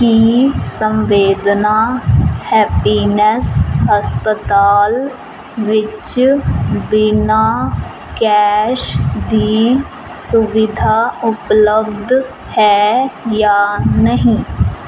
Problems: none marked